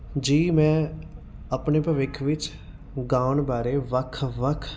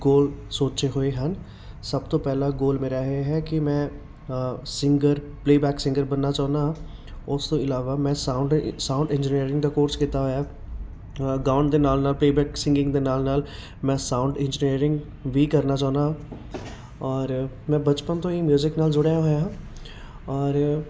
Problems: none marked